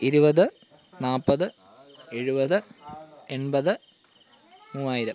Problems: background sounds at intervals